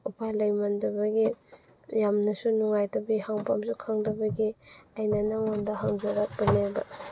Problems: background sounds at intervals